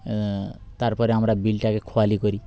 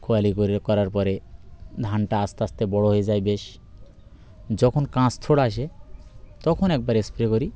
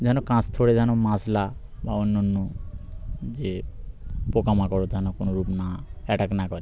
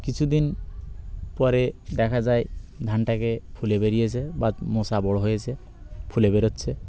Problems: constant background noise